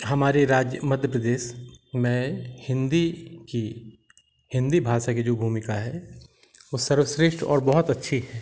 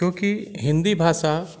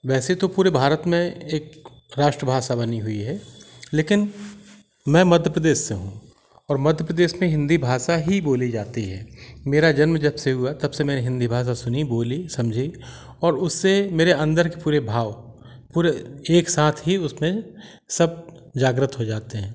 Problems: constant background noise